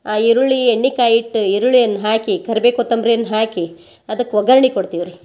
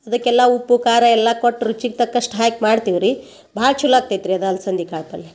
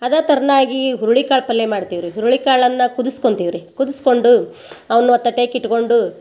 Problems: background conversations at intervals